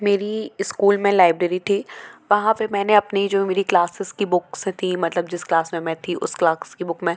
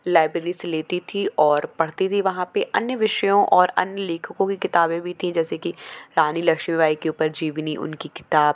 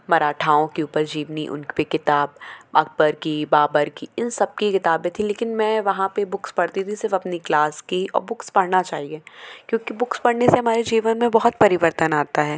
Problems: constant background noise, continuous background conversations